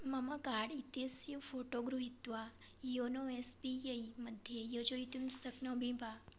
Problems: low volume